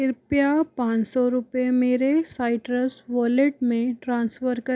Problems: constant background noise